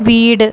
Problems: constant background noise